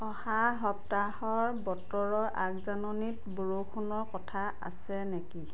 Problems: none marked